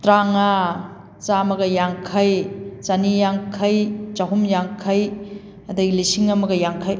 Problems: none marked